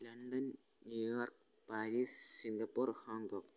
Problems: constant background noise, low volume